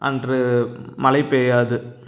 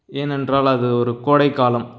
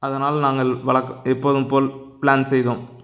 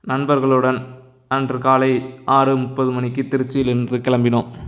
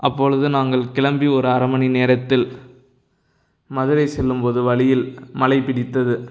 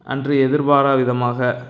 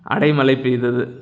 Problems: none marked